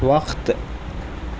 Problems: constant background noise